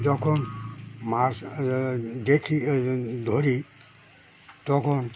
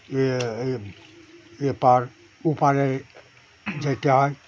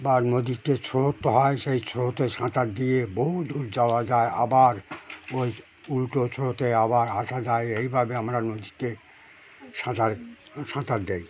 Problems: constant background noise, continuous background conversations